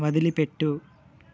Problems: constant background noise